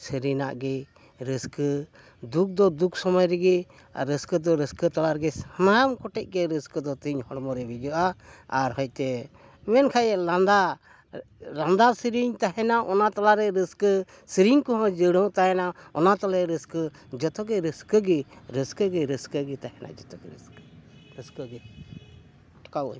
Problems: none marked